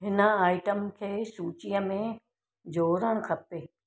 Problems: none marked